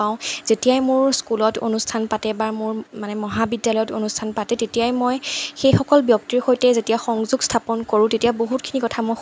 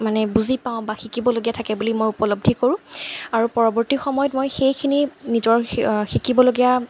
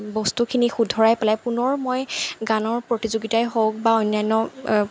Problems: none marked